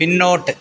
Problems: background conversations at intervals